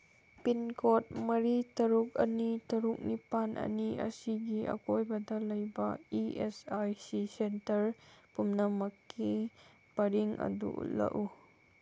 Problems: none marked